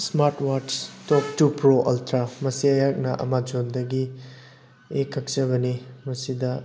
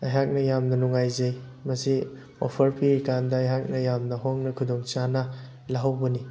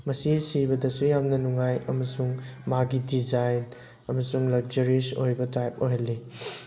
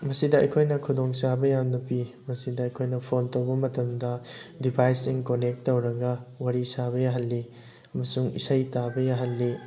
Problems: constant background noise